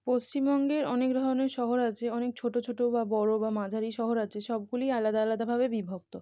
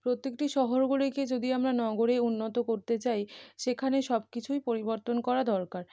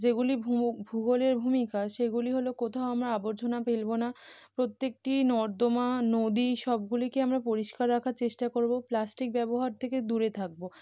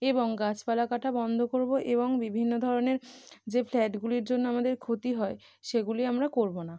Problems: background sounds at intervals